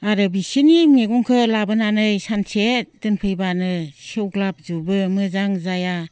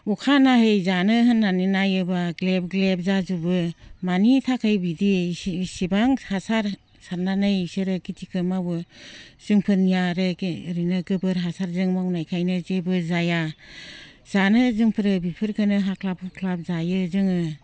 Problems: low volume